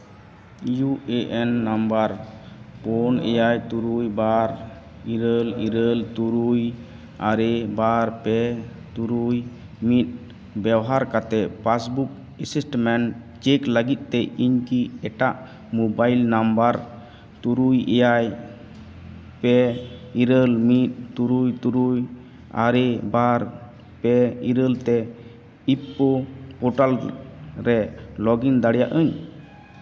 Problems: none marked